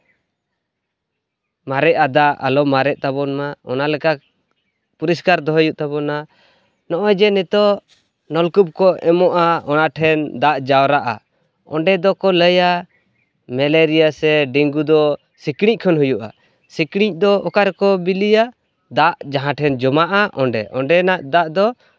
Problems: constant background noise